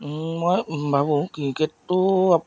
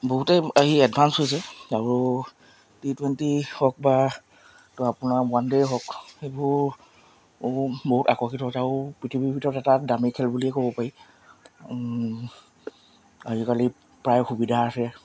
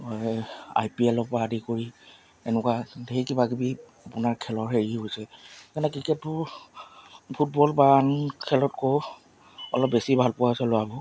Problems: none marked